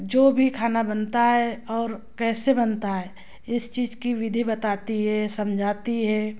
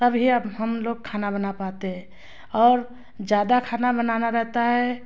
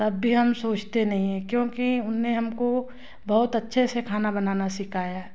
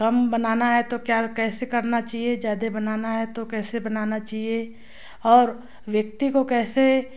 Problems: constant background noise